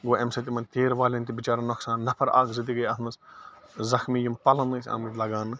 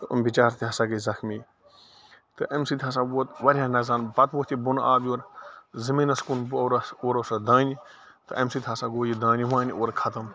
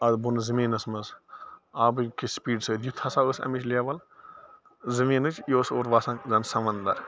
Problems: constant background noise